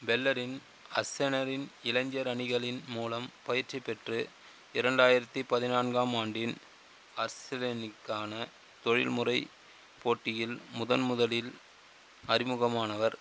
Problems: constant background noise